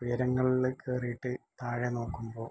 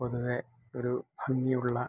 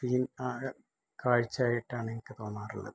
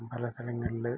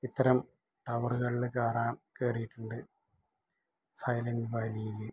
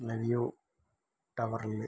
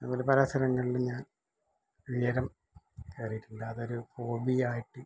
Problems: low volume